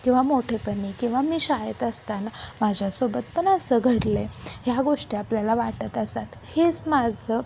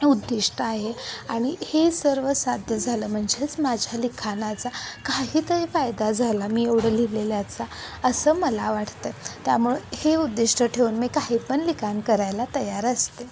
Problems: constant background noise, background conversations at intervals